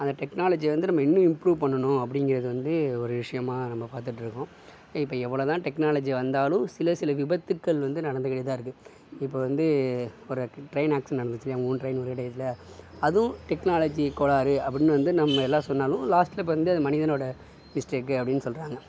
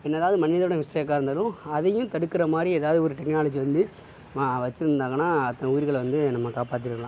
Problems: none marked